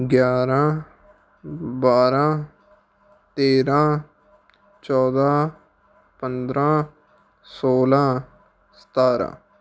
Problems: none marked